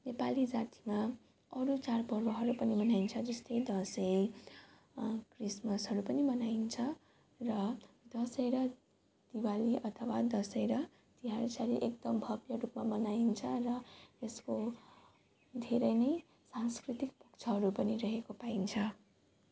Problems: constant background noise